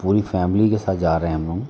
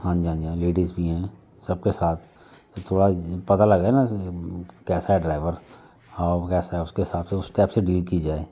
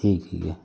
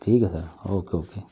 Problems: constant background noise, background conversations at intervals